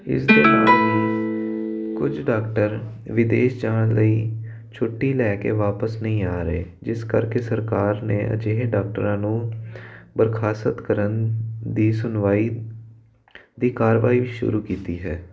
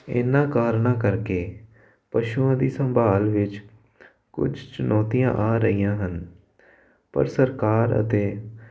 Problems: constant background noise